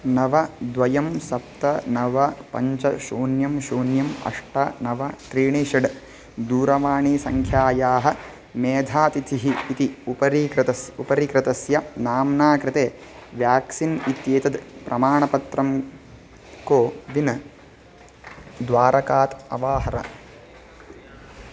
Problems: constant background noise